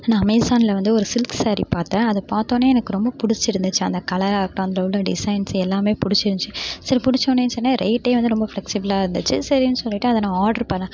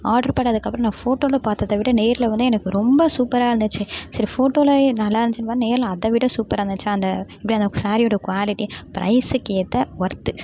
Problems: background sounds at intervals